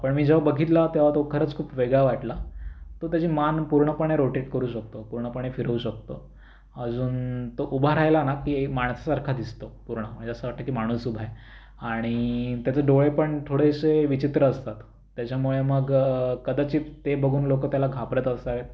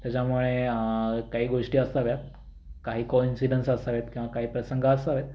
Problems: none marked